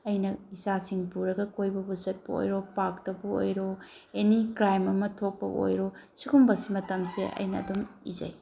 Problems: background sounds at intervals